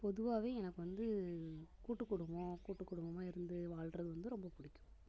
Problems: constant background noise